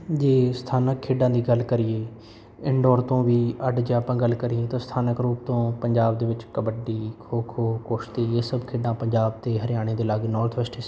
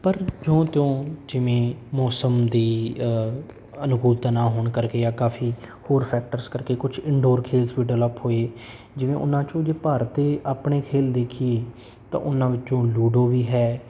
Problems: none marked